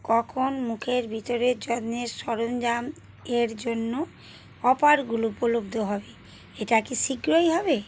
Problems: continuous background conversations